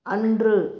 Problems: low volume